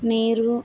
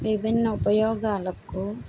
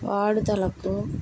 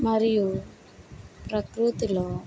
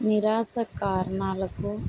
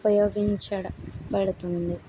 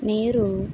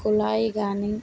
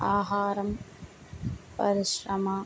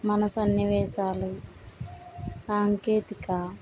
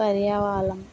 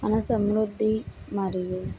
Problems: none marked